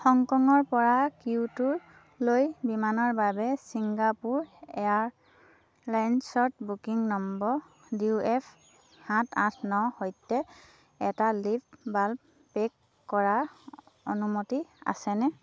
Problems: constant background noise